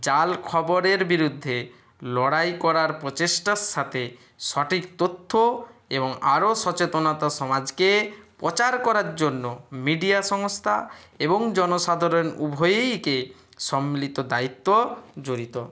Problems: none marked